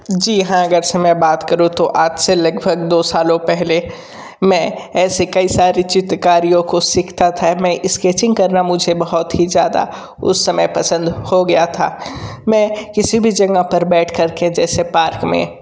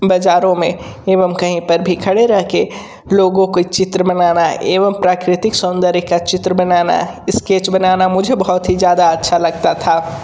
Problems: none marked